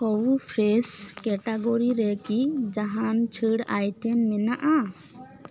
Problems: background conversations at intervals